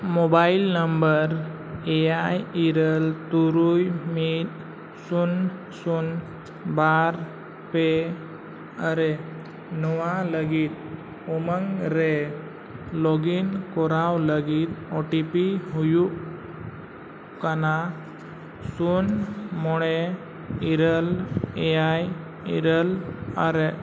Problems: constant background noise